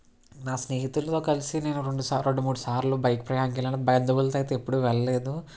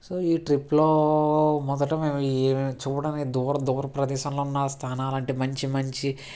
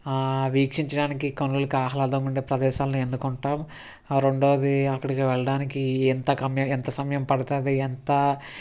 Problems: none marked